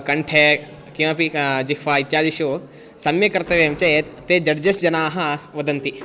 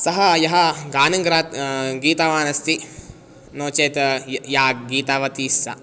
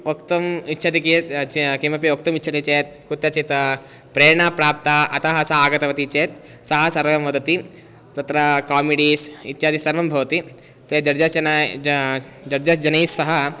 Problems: constant background noise